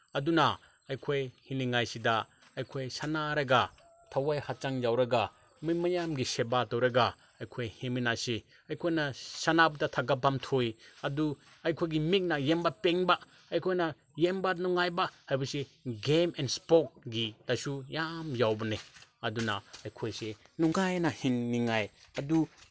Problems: none marked